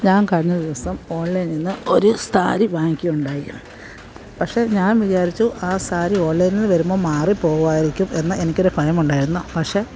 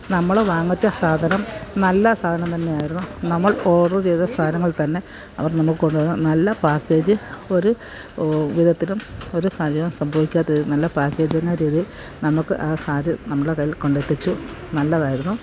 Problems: none marked